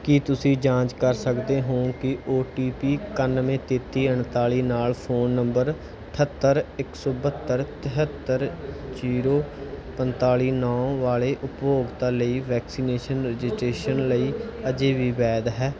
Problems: background sounds at intervals, background conversations at intervals